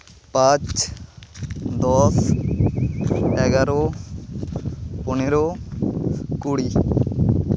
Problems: constant background noise